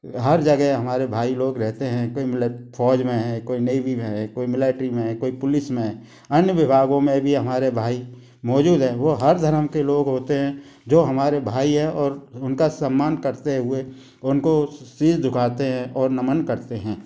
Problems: constant background noise